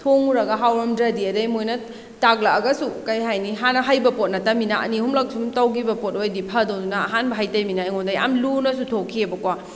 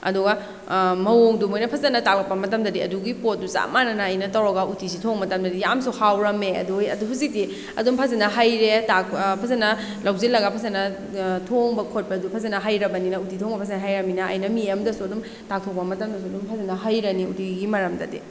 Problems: none marked